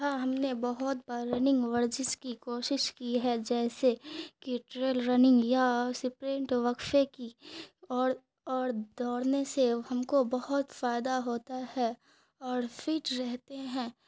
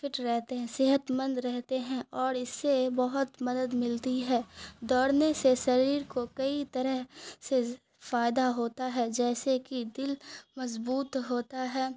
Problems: none marked